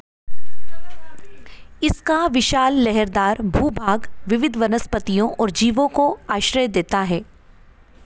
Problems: continuous background conversations